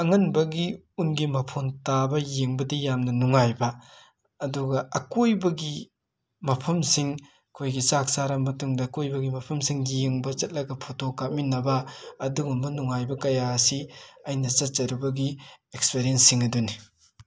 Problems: constant background noise